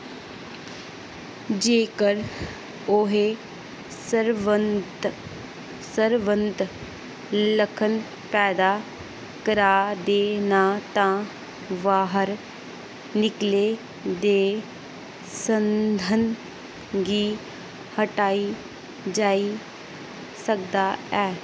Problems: constant background noise